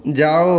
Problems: constant background noise